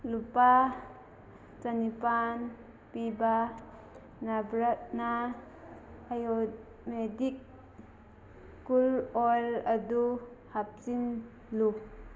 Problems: constant background noise, background conversations at intervals